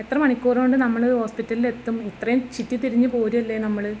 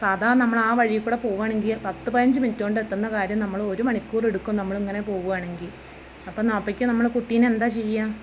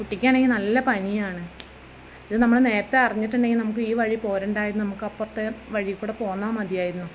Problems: background sounds at intervals, background conversations at intervals